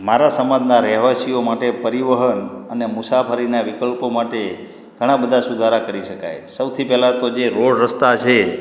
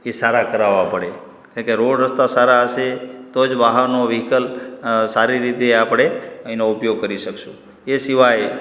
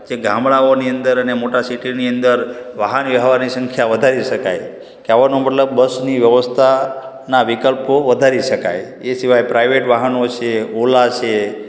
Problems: echo